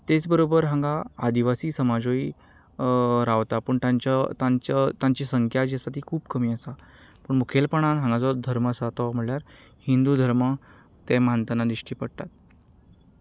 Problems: none marked